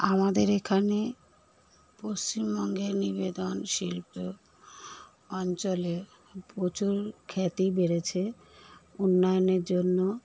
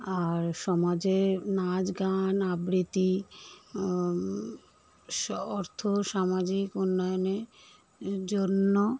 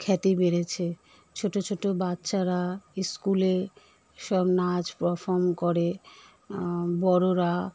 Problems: none marked